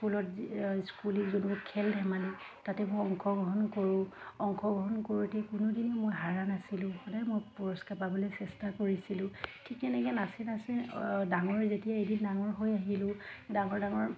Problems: constant background noise, background conversations at intervals